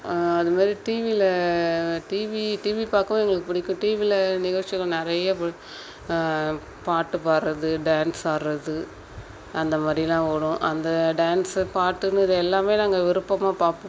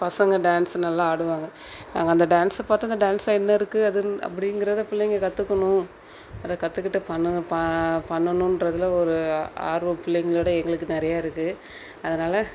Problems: background sounds at intervals